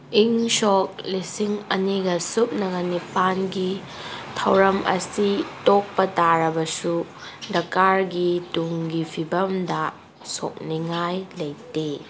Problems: background sounds at intervals